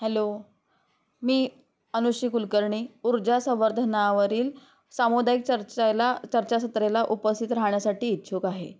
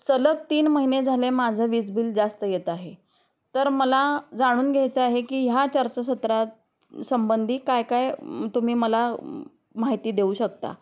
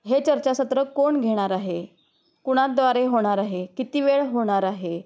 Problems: none marked